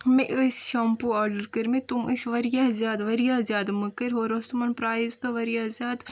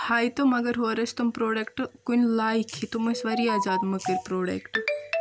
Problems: constant background noise